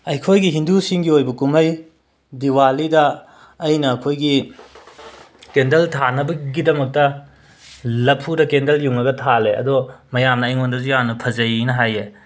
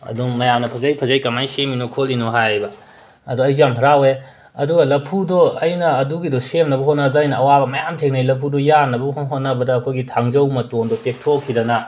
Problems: background sounds at intervals